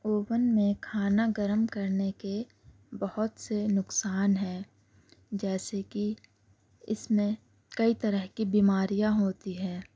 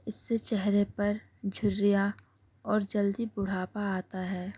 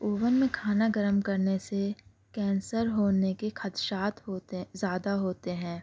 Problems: background sounds at intervals